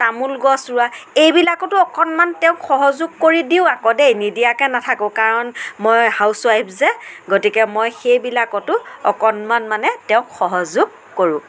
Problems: none marked